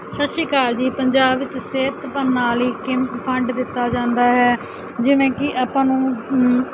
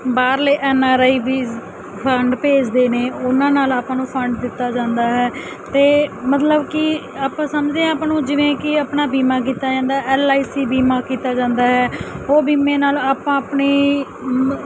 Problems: constant background noise